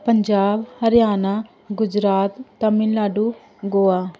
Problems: none marked